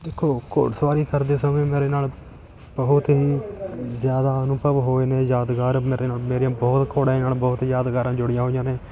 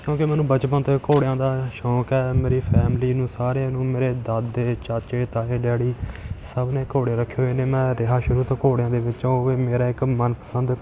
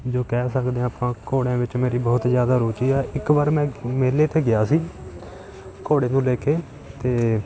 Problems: continuous background conversations